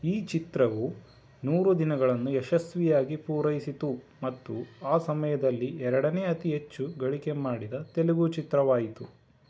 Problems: background sounds at intervals